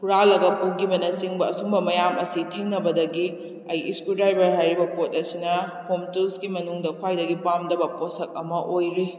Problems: none marked